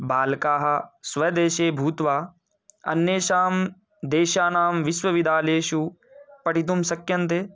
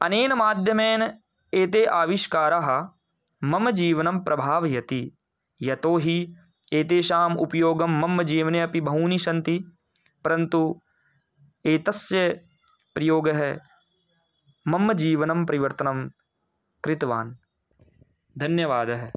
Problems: background sounds at intervals